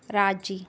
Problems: none marked